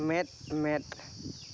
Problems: background sounds at intervals